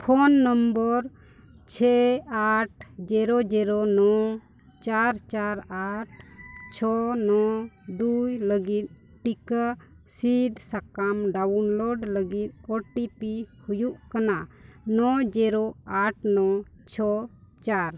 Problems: none marked